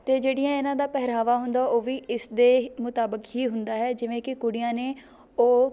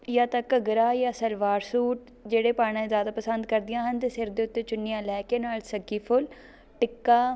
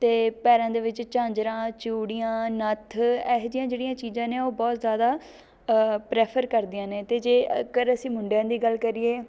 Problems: background sounds at intervals